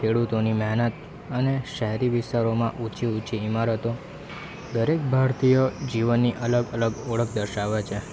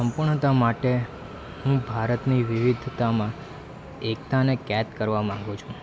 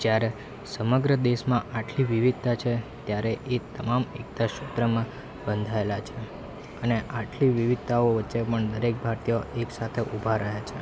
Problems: none marked